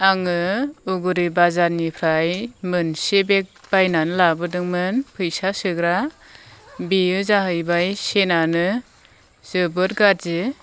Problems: none marked